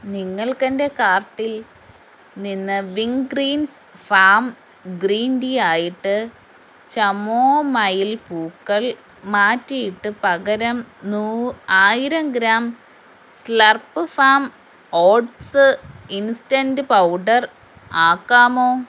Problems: constant background noise